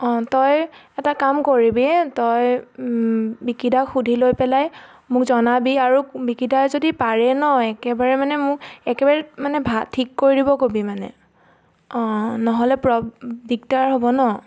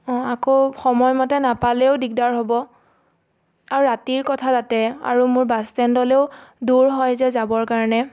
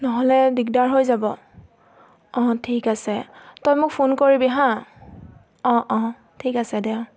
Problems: constant background noise